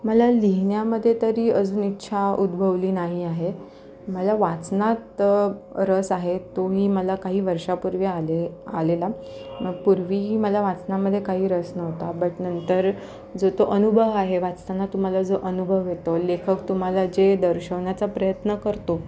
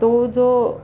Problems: constant background noise, continuous background conversations